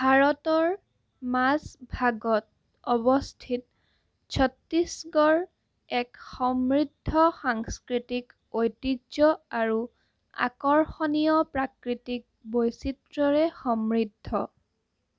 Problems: constant background noise